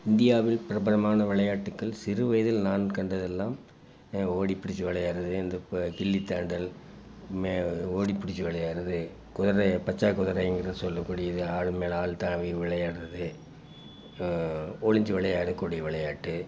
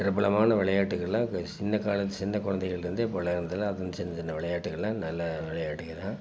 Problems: background sounds at intervals